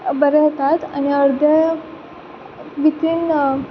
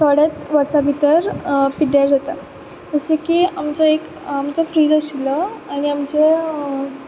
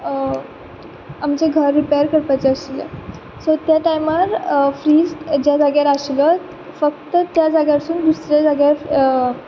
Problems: none marked